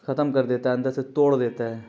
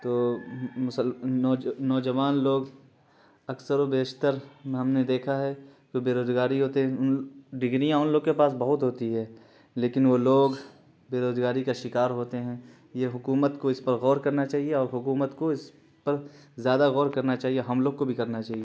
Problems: constant background noise